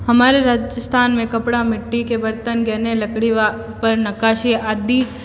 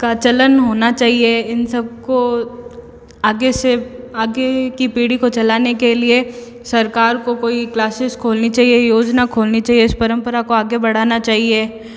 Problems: echo